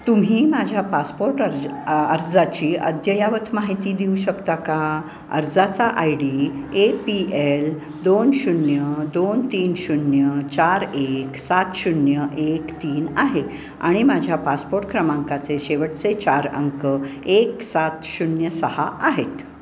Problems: constant background noise, background conversations at intervals